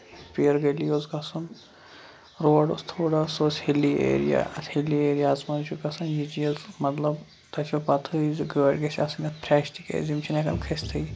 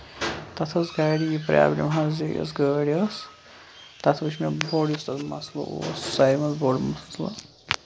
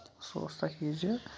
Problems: constant background noise